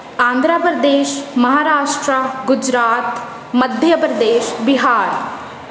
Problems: none marked